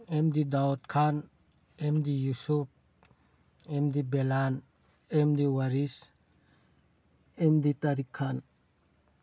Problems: none marked